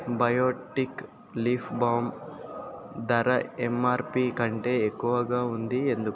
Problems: constant background noise